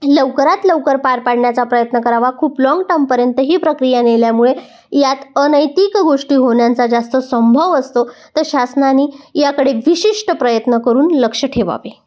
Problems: none marked